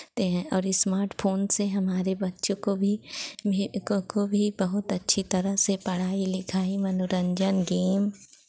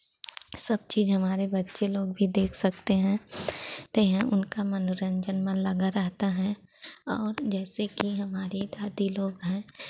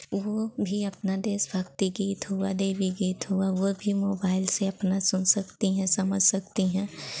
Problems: constant background noise